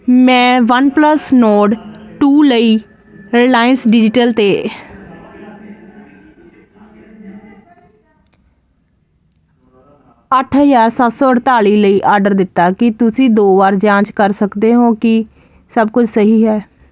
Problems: constant background noise